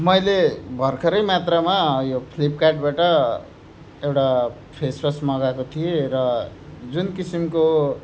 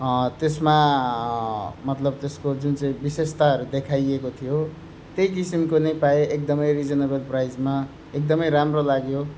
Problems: none marked